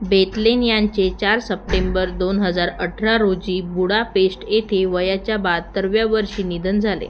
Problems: constant background noise